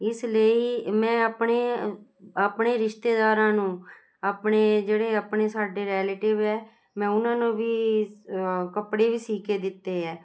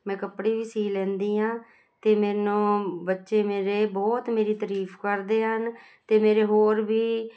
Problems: constant background noise